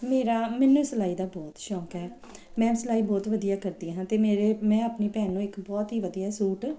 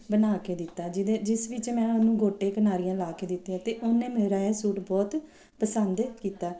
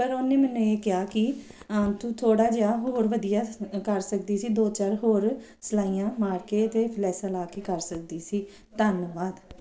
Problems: none marked